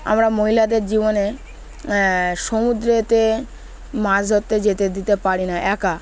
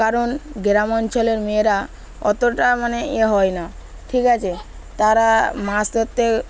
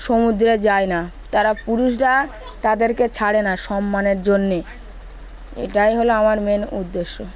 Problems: constant background noise, continuous background conversations